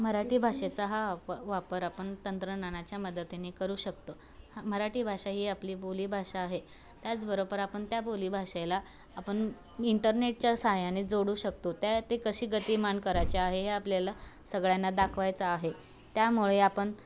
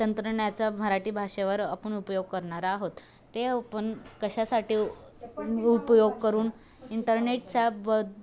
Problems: constant background noise, background conversations at intervals